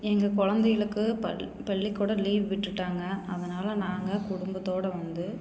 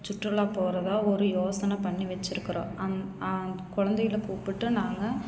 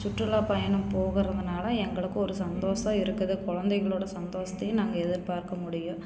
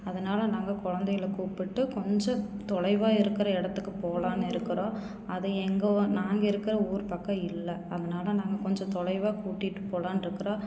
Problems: none marked